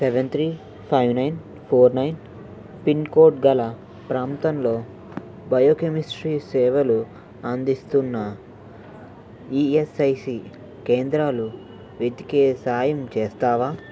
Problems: none marked